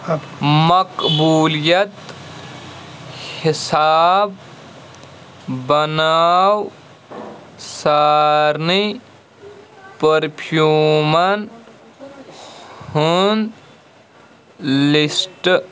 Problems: constant background noise